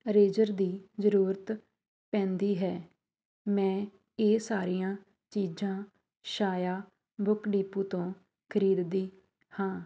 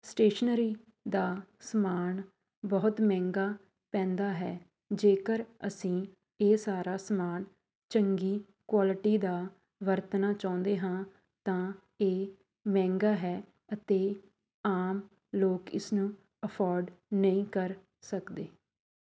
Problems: background sounds at intervals